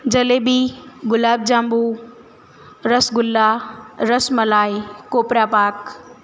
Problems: constant background noise